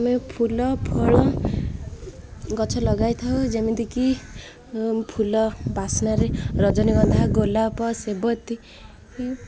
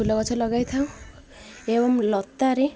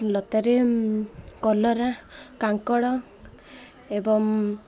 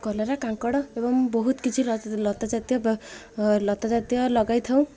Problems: constant background noise